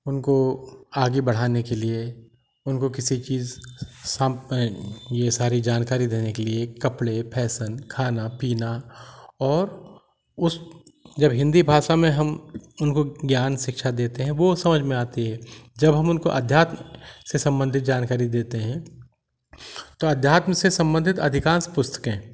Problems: constant background noise